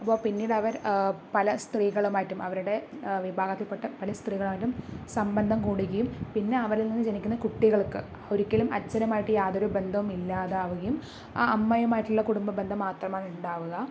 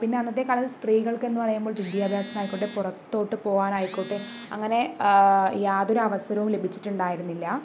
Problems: none marked